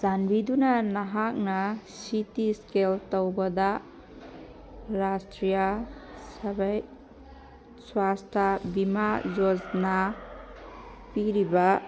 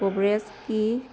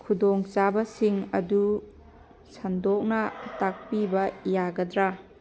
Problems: background sounds at intervals